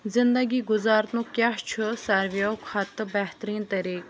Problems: constant background noise